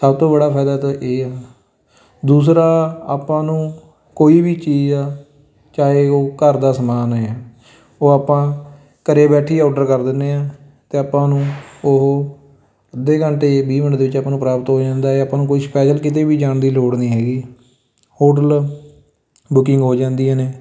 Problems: constant background noise, continuous background conversations